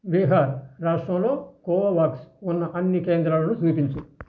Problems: constant background noise